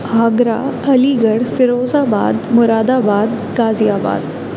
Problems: none marked